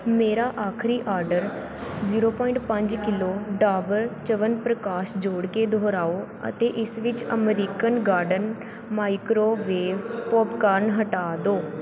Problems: background sounds at intervals, background conversations at intervals